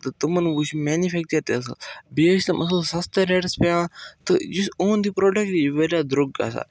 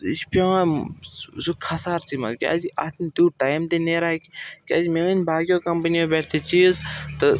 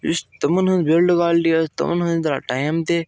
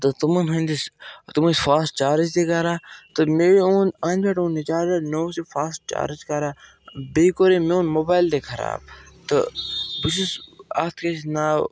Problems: background sounds at intervals